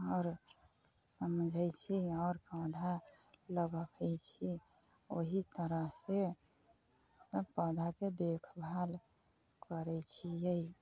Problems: low volume